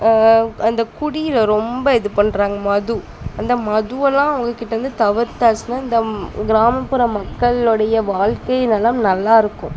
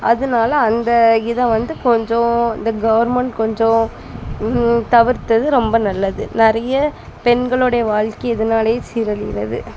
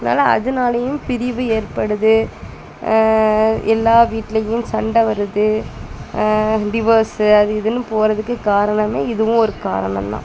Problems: constant background noise, background conversations at intervals